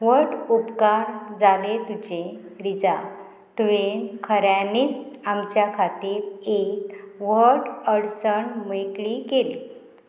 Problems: none marked